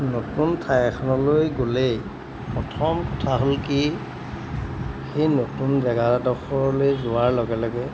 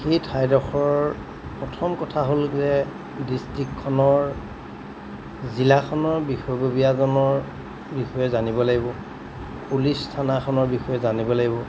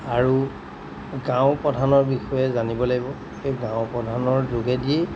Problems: background sounds at intervals